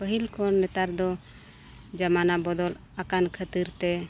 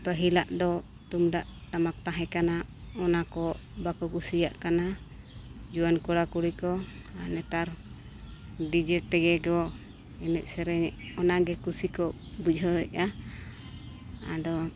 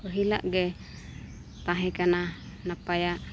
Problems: none marked